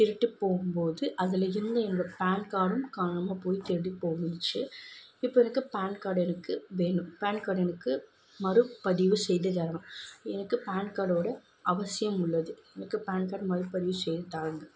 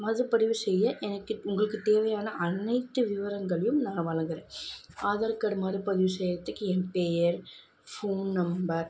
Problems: constant background noise